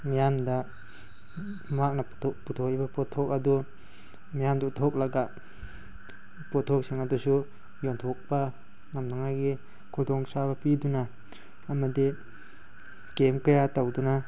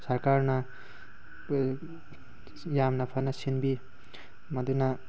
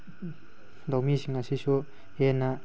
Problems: none marked